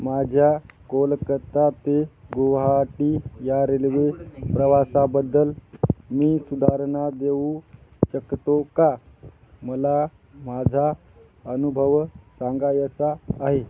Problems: none marked